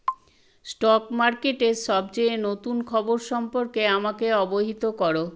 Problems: constant background noise